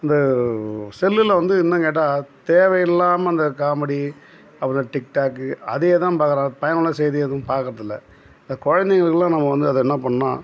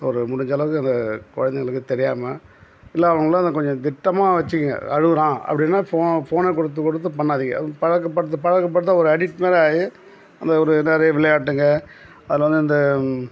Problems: none marked